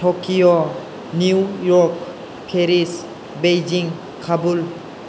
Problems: constant background noise